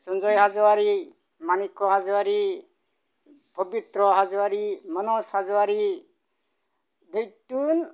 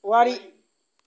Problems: low volume